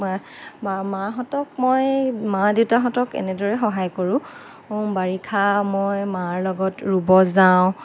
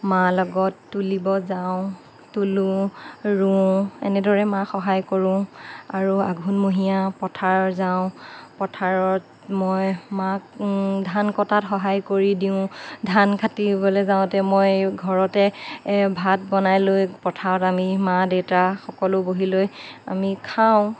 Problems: none marked